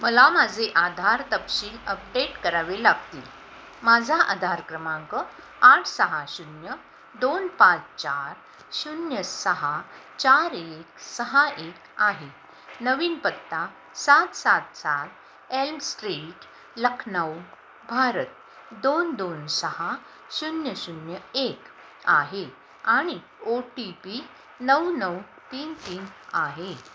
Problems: none marked